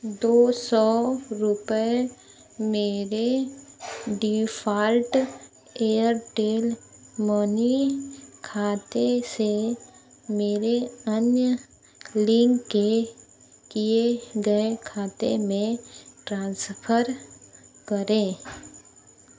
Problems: none marked